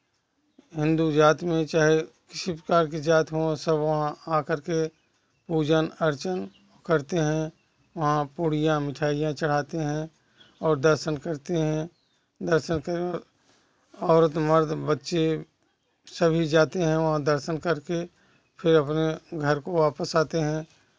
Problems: constant background noise, background conversations at intervals